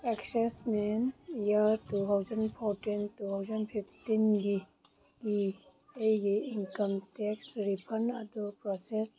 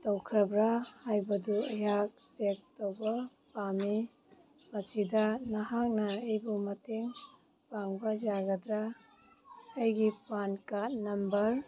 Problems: background sounds at intervals